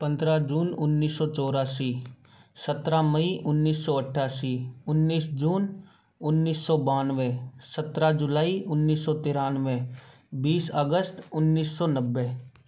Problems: background sounds at intervals